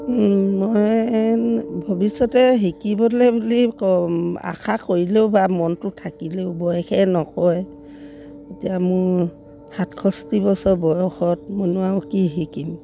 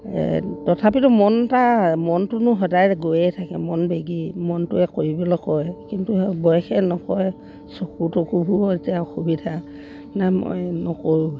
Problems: background sounds at intervals